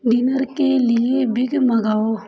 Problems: background conversations at intervals